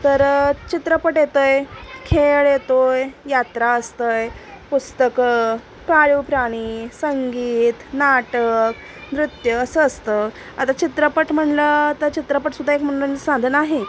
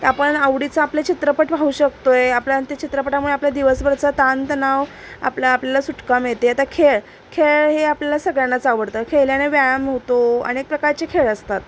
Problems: constant background noise